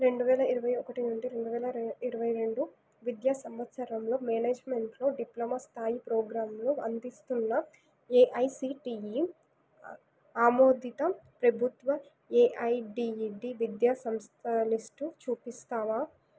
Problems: none marked